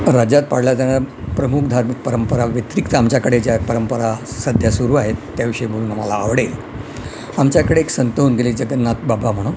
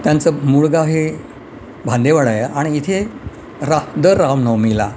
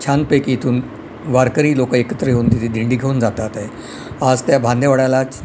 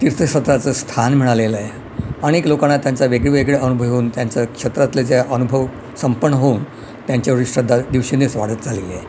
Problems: none marked